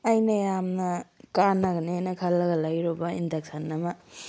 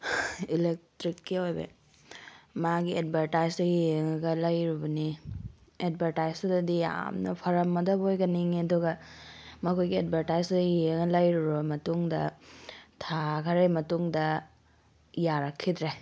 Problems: none marked